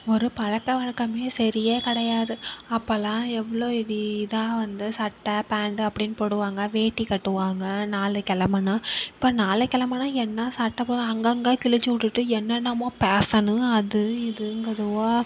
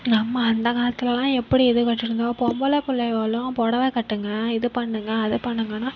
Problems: none marked